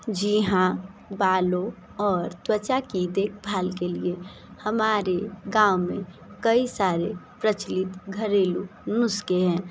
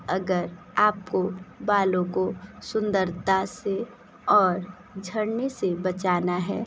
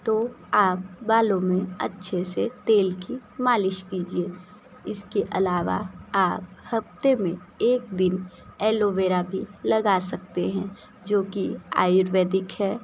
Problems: constant background noise